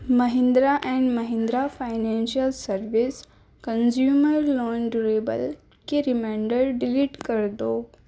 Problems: background sounds at intervals